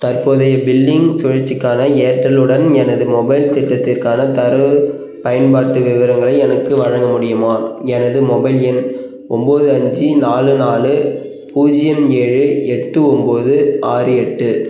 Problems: background sounds at intervals